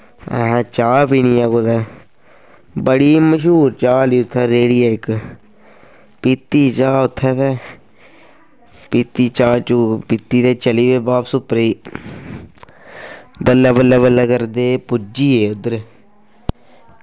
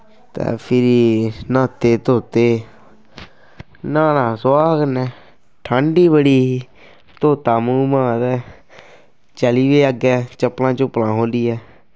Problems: constant background noise